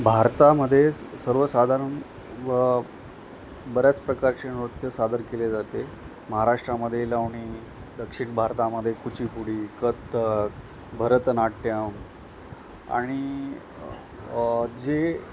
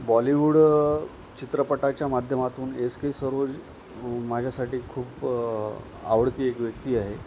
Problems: constant background noise